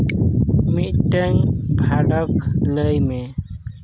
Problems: background sounds at intervals